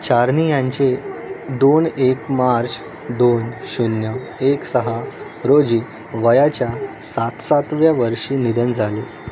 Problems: none marked